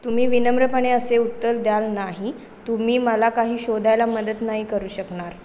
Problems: constant background noise